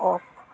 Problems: continuous background conversations